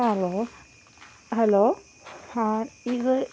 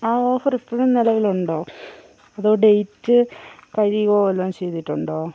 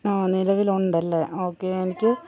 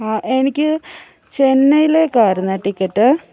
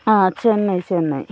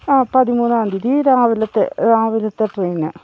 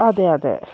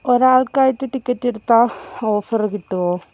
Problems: constant background noise